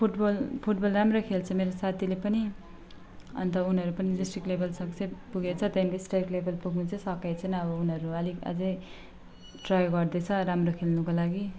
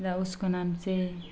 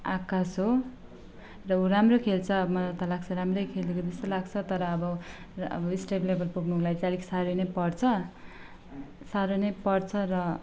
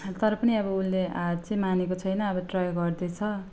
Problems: constant background noise